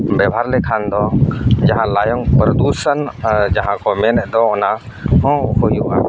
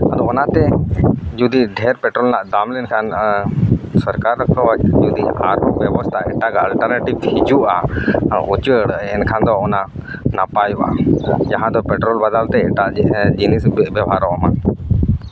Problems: background sounds at intervals